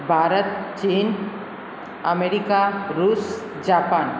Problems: constant background noise, echo